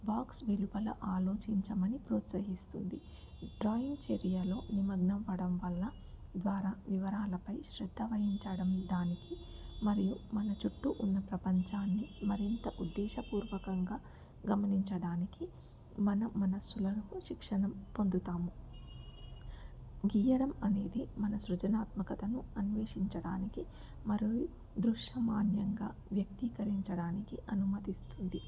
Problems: background sounds at intervals, low volume